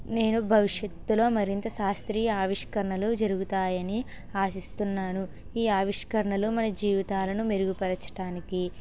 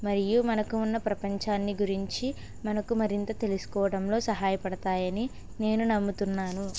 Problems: constant background noise, background conversations at intervals